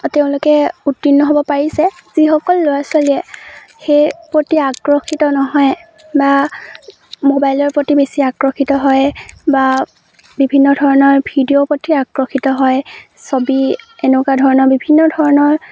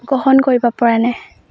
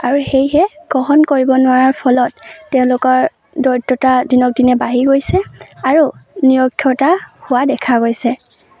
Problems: none marked